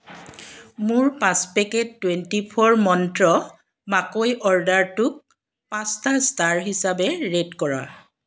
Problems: background sounds at intervals